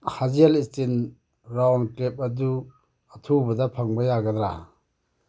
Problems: background sounds at intervals